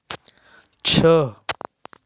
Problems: none marked